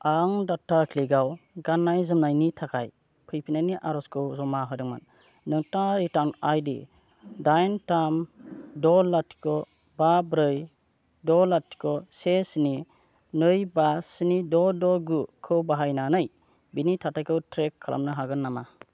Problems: none marked